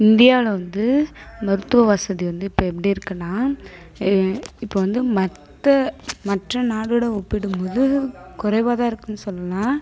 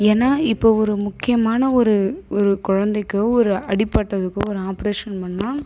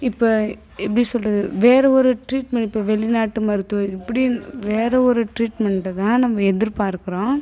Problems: none marked